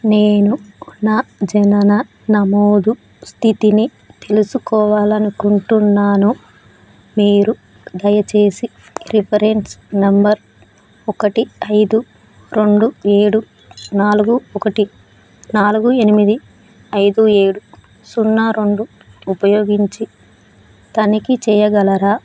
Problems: none marked